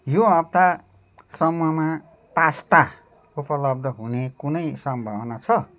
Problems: none marked